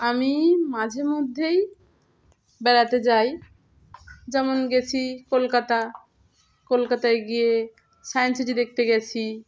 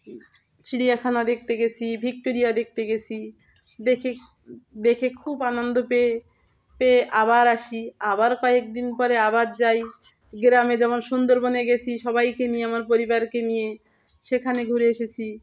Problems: none marked